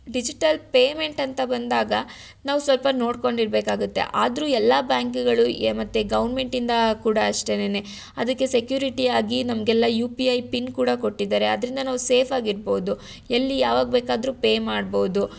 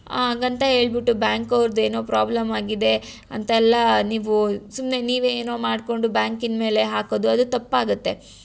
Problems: none marked